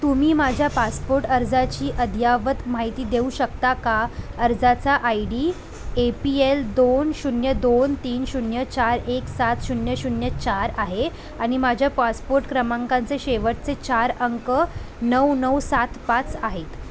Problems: constant background noise, continuous background conversations